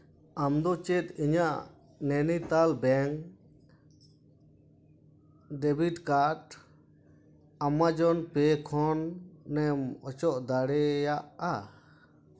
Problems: constant background noise, echo